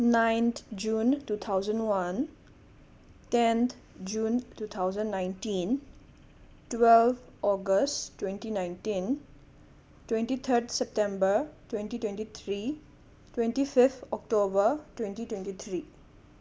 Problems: none marked